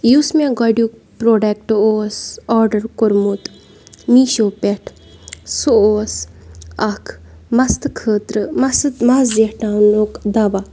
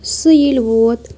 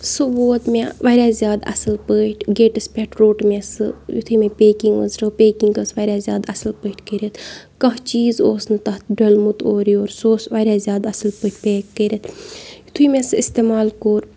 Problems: background sounds at intervals, background conversations at intervals